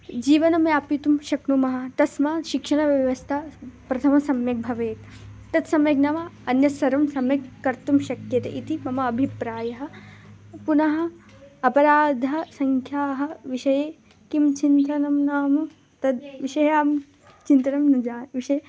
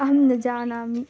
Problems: none marked